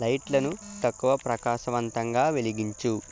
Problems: constant background noise, continuous background conversations